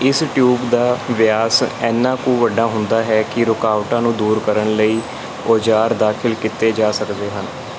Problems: none marked